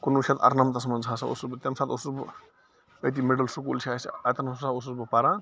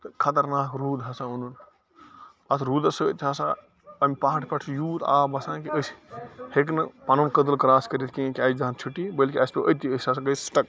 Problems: constant background noise